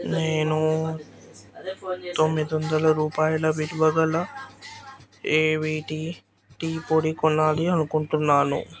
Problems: background sounds at intervals, background conversations at intervals